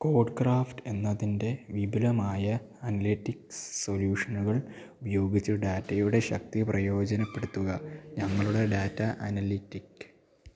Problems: low volume